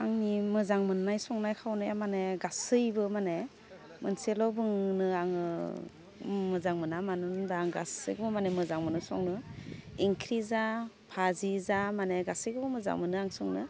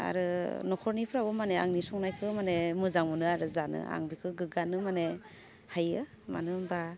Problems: constant background noise